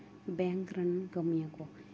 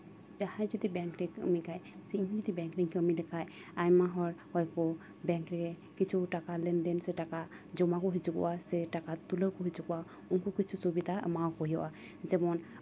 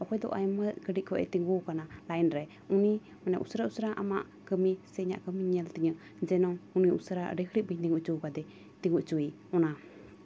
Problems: none marked